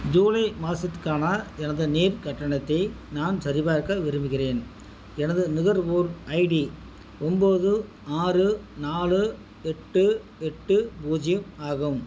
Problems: constant background noise